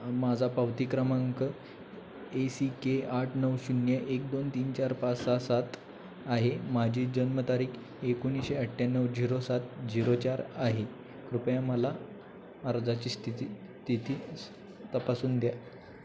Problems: constant background noise, background conversations at intervals